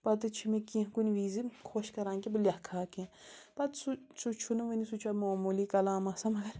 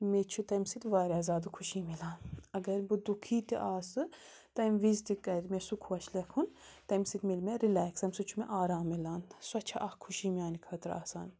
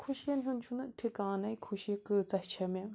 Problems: constant background noise